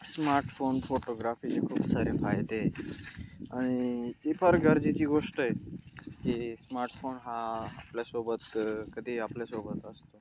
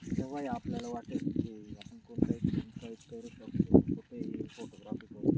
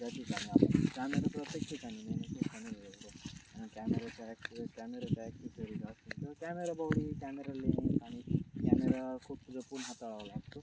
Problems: constant background noise